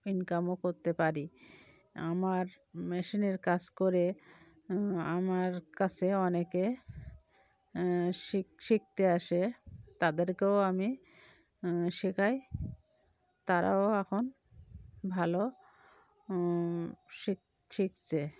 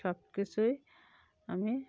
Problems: background sounds at intervals